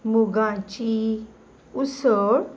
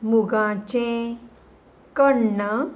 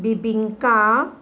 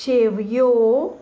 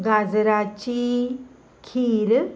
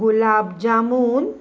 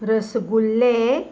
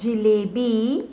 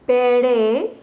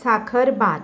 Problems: none marked